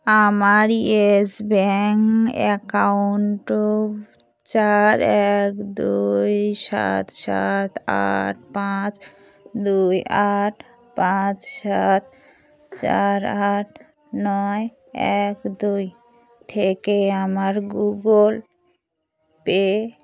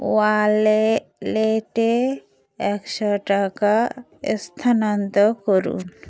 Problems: constant background noise